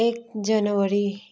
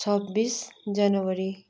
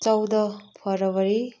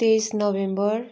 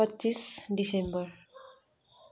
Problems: none marked